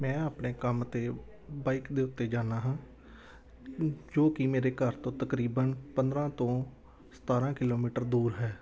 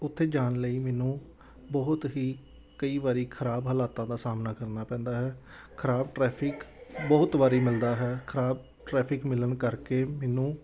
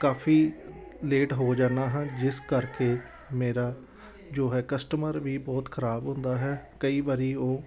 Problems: none marked